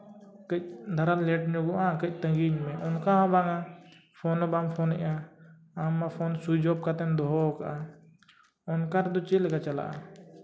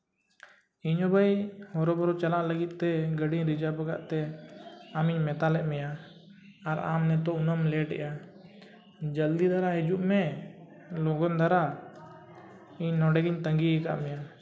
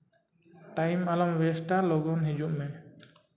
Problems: background sounds at intervals, background conversations at intervals